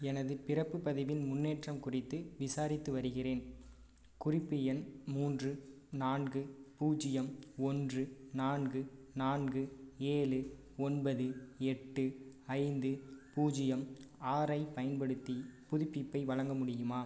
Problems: low volume